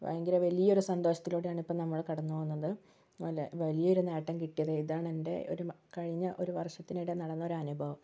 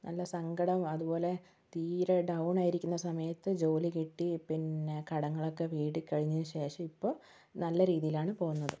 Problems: low volume